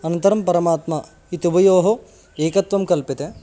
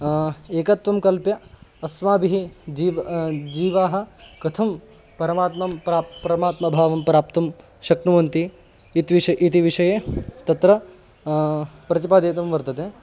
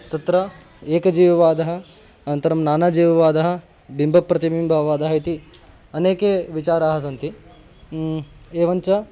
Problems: constant background noise